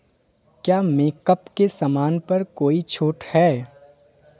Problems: background sounds at intervals, background conversations at intervals